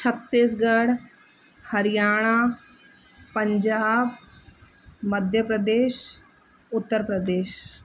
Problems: constant background noise, echo